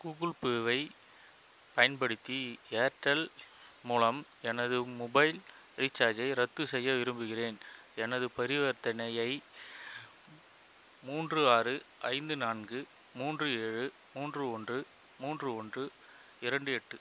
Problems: constant background noise